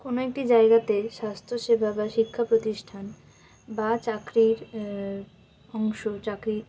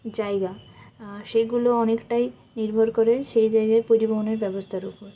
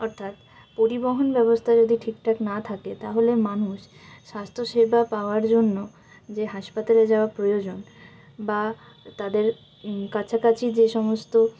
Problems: constant background noise